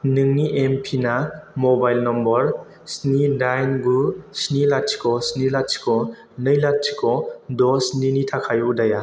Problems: constant background noise